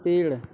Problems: constant background noise, continuous background conversations